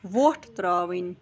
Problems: none marked